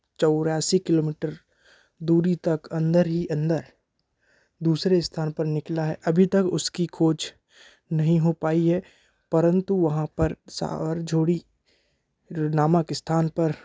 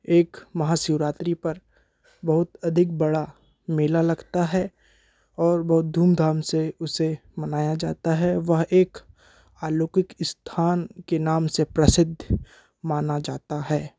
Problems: none marked